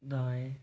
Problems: constant background noise, low volume